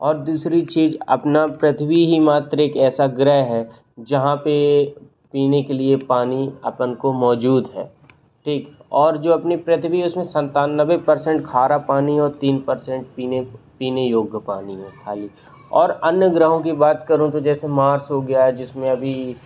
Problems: constant background noise